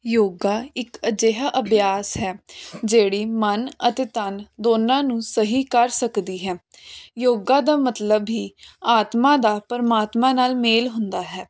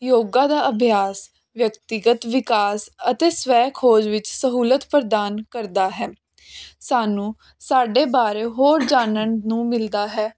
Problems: background sounds at intervals